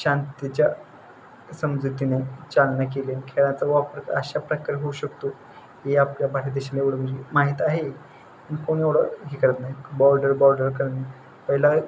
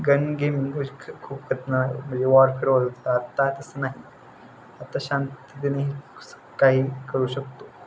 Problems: constant background noise